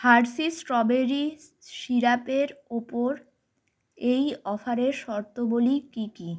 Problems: background sounds at intervals